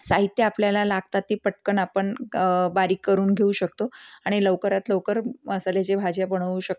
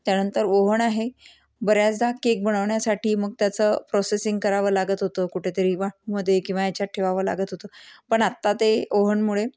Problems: none marked